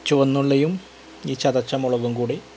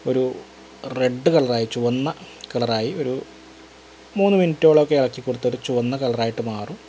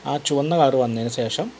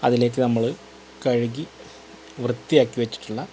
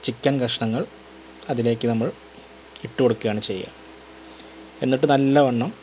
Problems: constant background noise